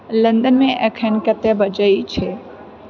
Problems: background sounds at intervals, background conversations at intervals